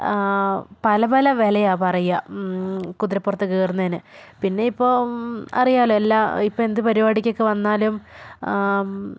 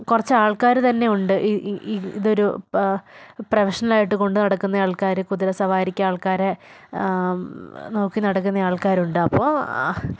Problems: background sounds at intervals